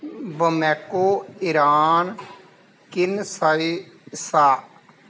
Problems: constant background noise